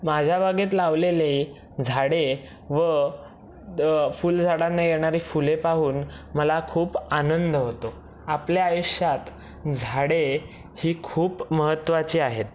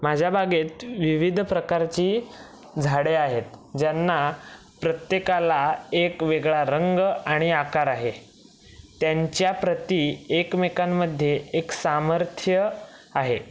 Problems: none marked